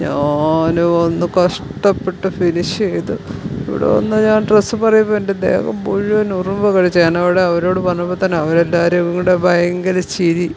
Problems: background sounds at intervals